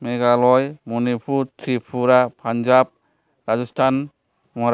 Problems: none marked